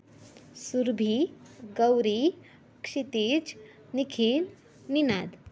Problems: constant background noise, background conversations at intervals